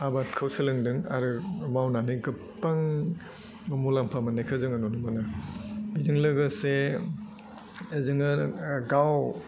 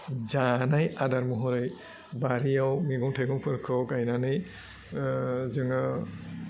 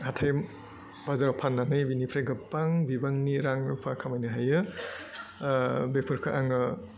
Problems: low volume